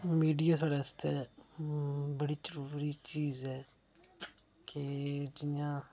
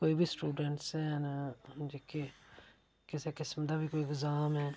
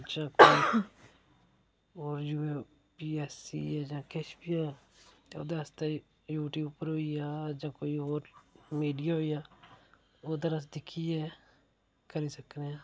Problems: none marked